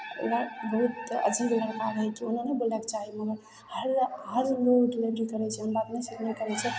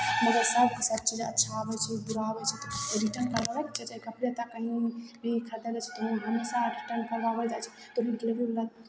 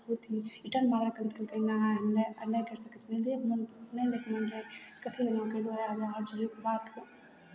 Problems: none marked